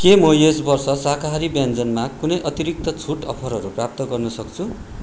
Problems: constant background noise